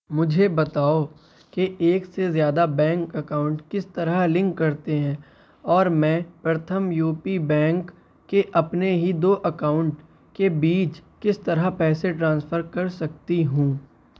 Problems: constant background noise